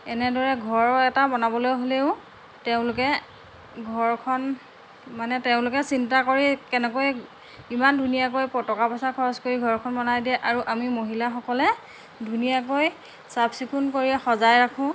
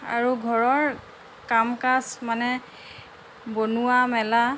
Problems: constant background noise